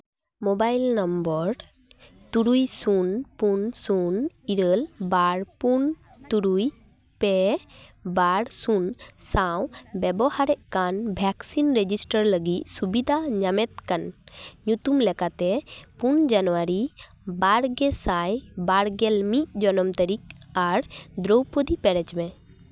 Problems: background sounds at intervals